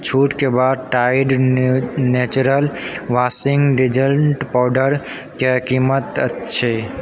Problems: background conversations at intervals